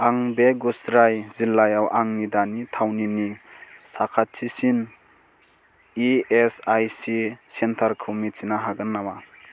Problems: constant background noise